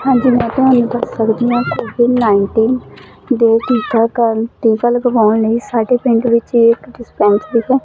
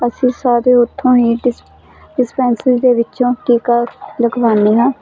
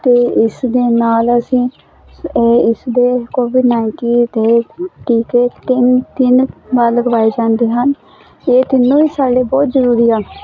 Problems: constant background noise